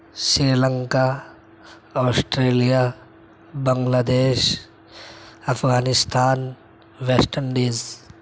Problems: constant background noise